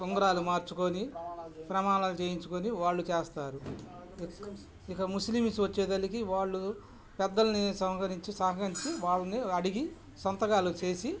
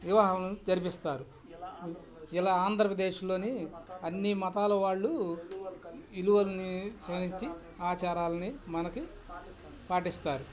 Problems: none marked